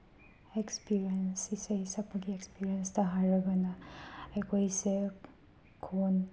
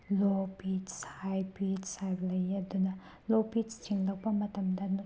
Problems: background sounds at intervals